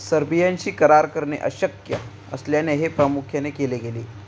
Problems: none marked